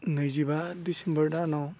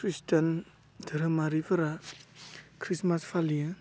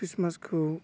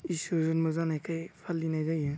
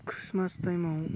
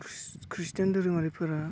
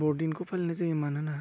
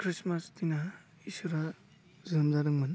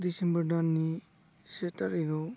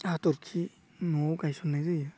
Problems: background sounds at intervals